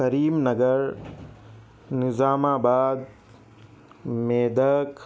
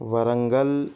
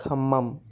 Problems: none marked